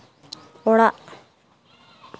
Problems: none marked